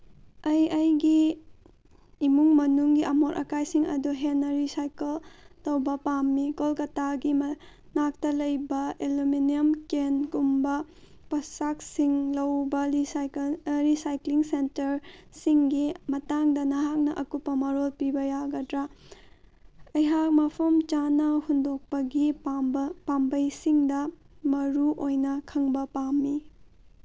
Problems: none marked